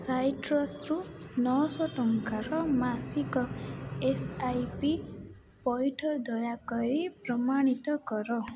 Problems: none marked